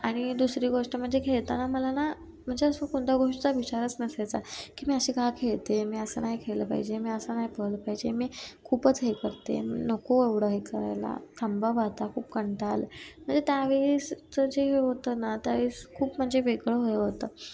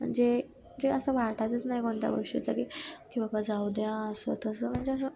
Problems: constant background noise, background conversations at intervals